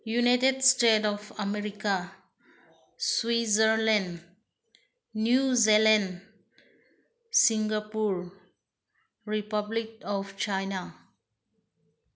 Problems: none marked